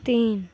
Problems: none marked